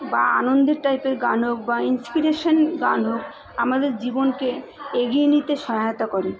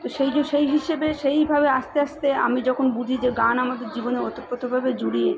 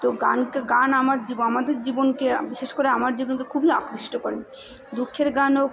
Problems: continuous background conversations